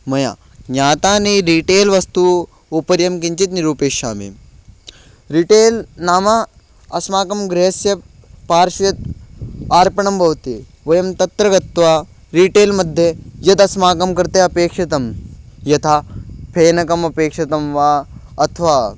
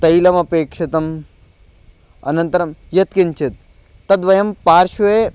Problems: background sounds at intervals